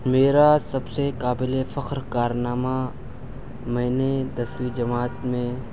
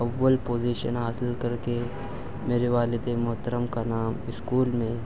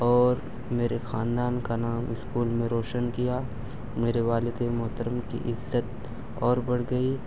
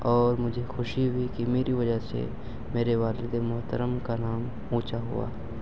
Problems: constant background noise, low volume